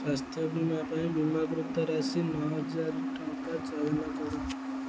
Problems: low volume